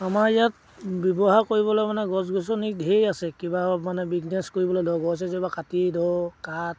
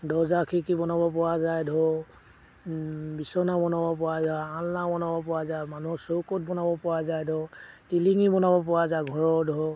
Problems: background sounds at intervals